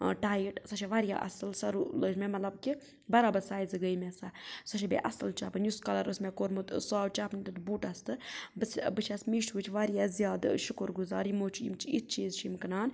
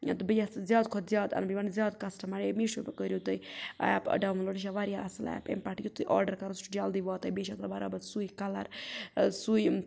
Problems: background sounds at intervals